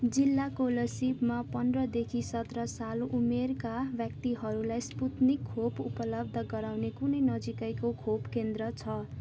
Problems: constant background noise